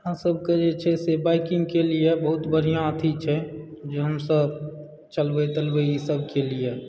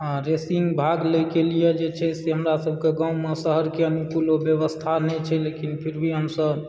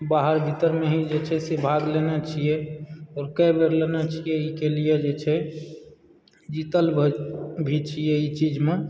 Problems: background sounds at intervals